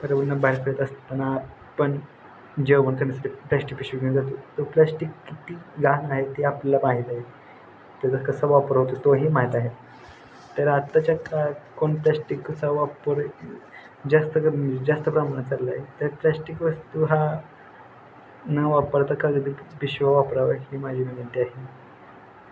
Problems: none marked